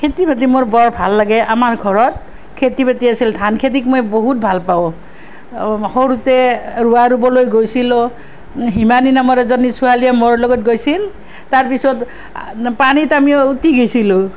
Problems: none marked